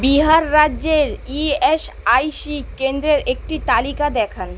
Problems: none marked